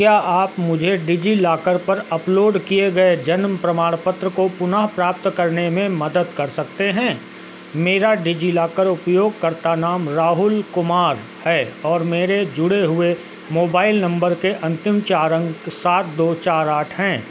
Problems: constant background noise